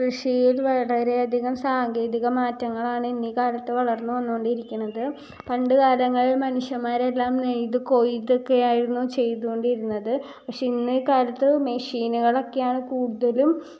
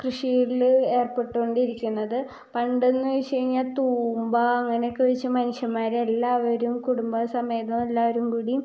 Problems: low volume